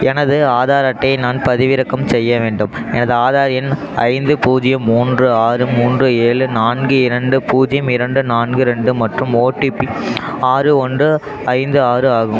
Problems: constant background noise